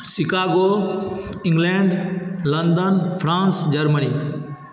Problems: constant background noise